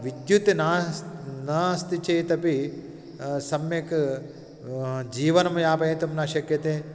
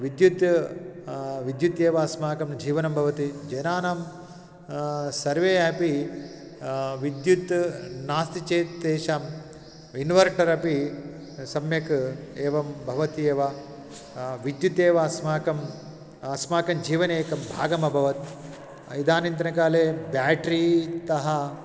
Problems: background sounds at intervals